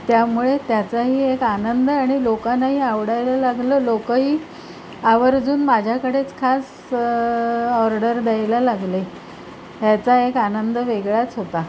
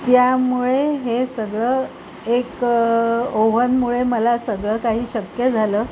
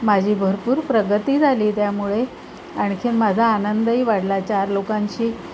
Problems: constant background noise